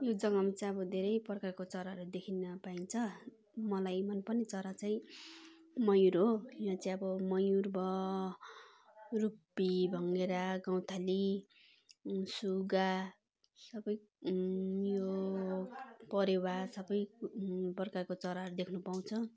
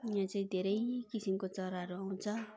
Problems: continuous background conversations